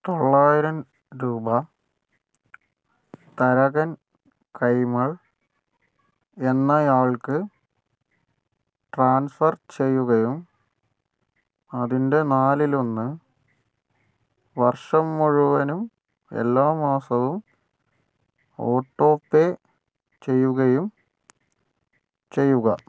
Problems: none marked